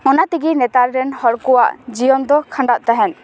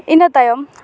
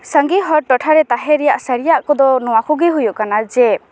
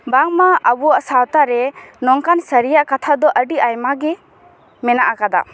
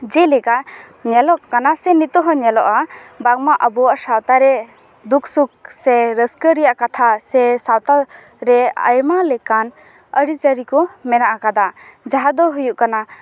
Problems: background sounds at intervals, continuous background conversations